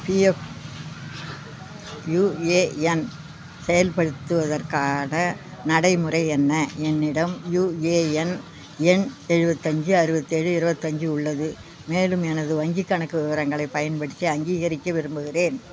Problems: none marked